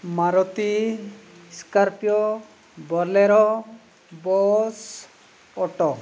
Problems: none marked